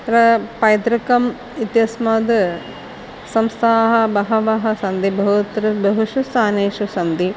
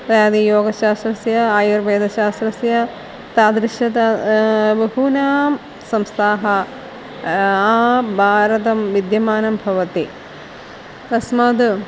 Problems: constant background noise, background conversations at intervals